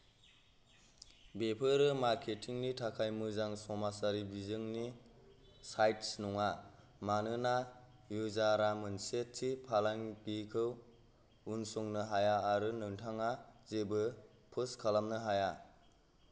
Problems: none marked